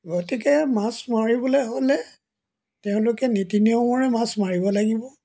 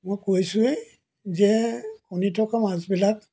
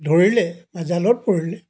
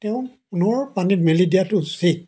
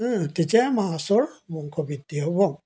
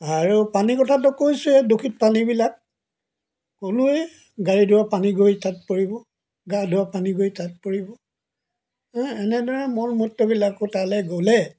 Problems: background sounds at intervals